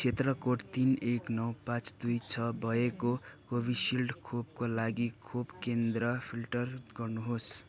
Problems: none marked